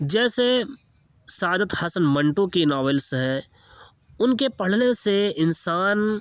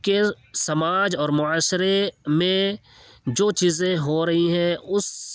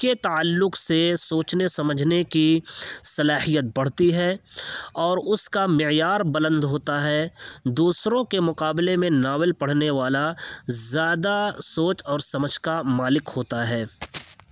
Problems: background sounds at intervals, background conversations at intervals